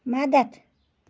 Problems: background sounds at intervals